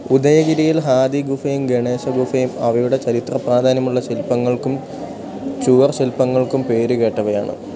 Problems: none marked